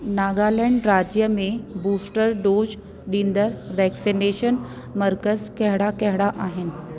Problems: constant background noise, echo